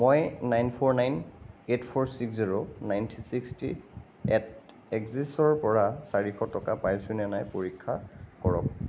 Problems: none marked